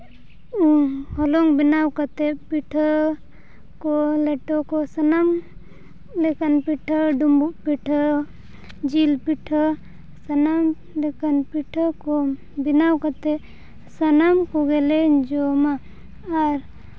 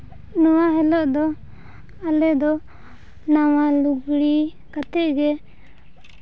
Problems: none marked